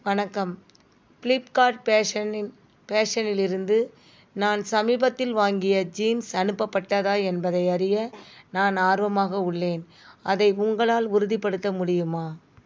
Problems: background sounds at intervals